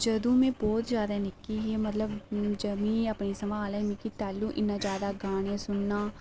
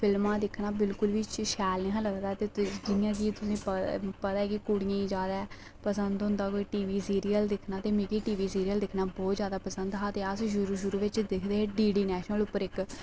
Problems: background sounds at intervals